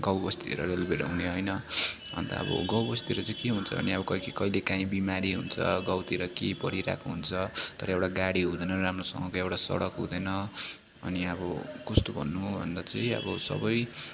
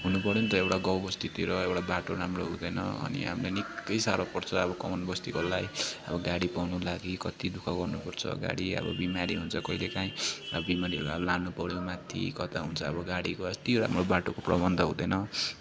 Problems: none marked